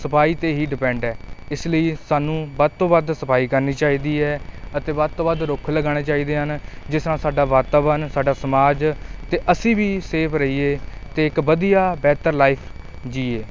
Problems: none marked